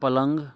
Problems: continuous background conversations